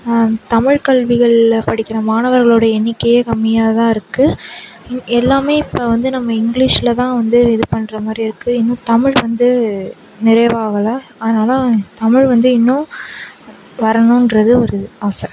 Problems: background sounds at intervals